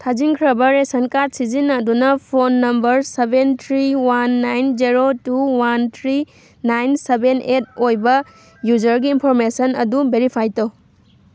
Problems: background sounds at intervals